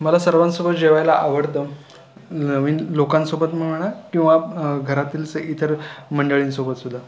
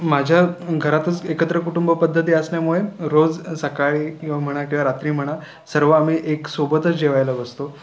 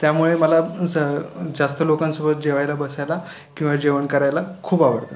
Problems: none marked